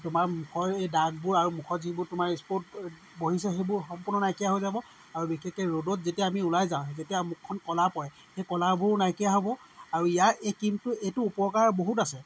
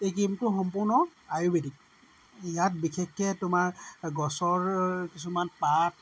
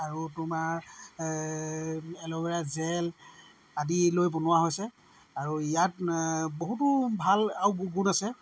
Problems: background sounds at intervals